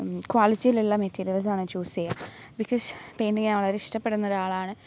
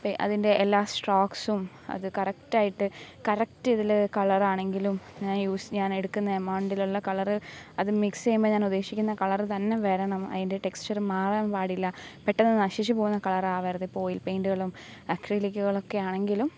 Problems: constant background noise